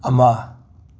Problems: none marked